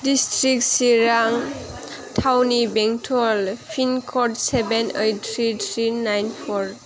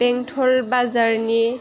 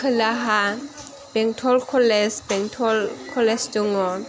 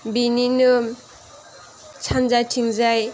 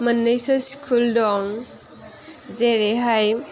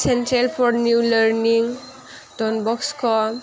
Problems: background sounds at intervals